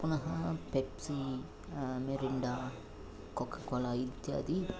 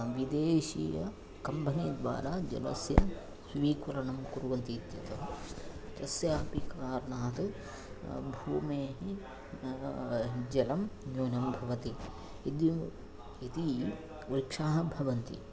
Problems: low volume